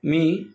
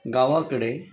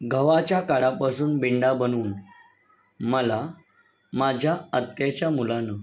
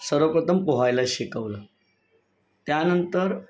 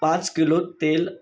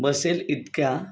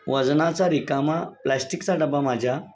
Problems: none marked